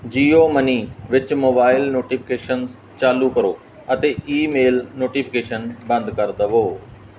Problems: background sounds at intervals